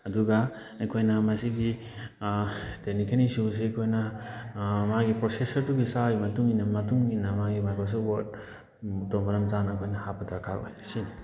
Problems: background conversations at intervals